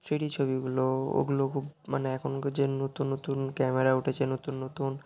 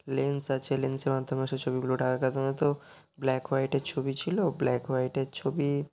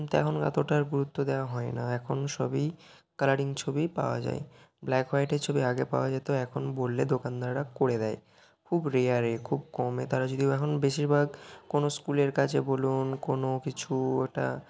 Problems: background sounds at intervals